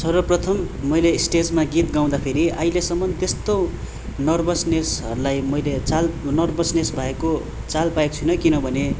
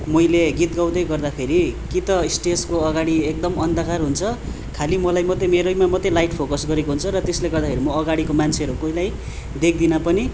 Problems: constant background noise